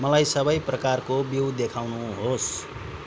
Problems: none marked